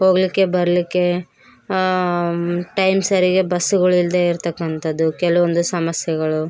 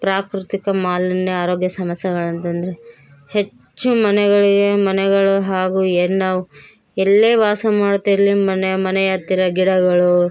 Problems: background sounds at intervals